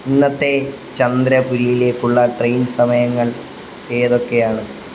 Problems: none marked